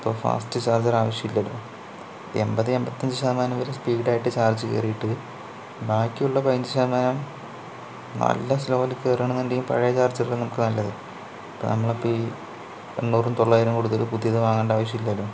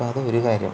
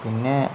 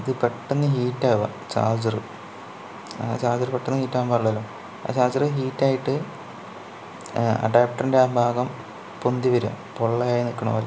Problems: low volume